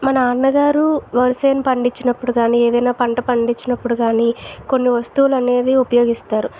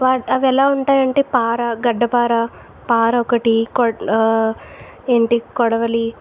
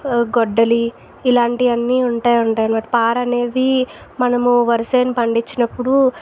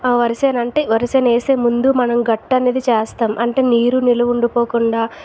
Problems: constant background noise